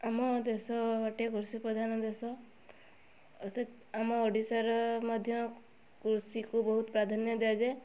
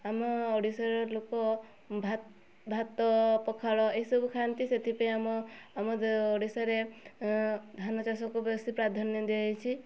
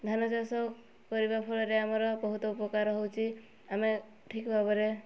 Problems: none marked